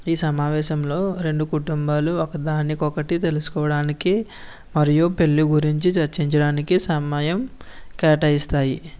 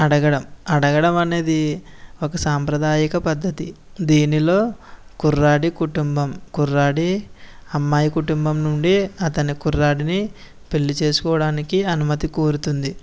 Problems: none marked